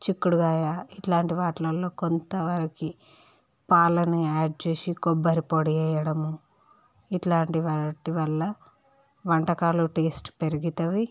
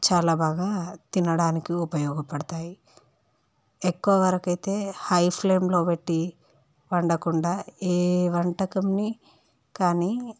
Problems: none marked